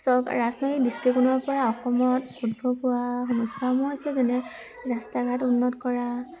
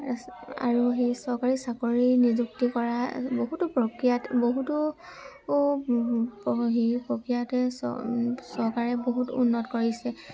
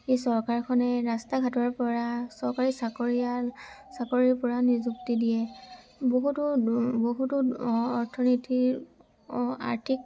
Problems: constant background noise, background conversations at intervals